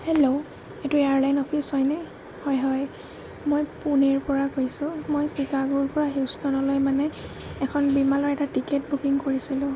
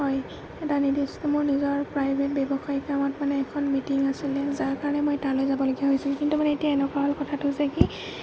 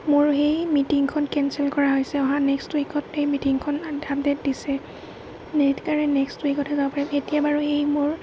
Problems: none marked